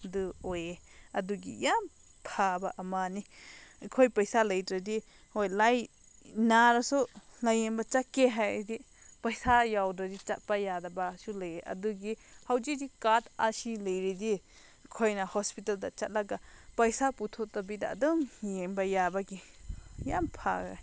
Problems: none marked